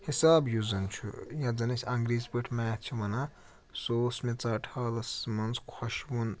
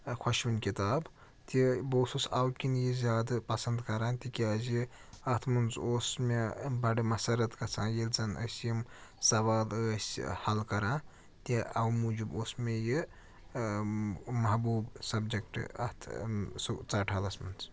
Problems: none marked